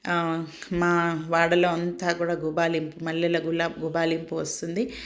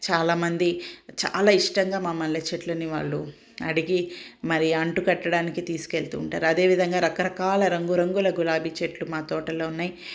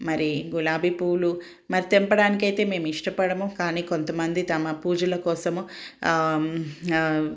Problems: none marked